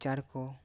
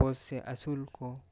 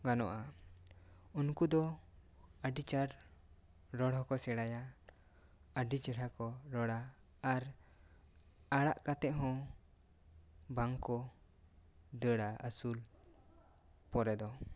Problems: none marked